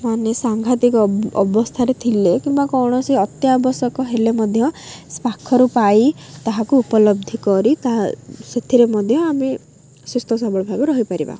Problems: none marked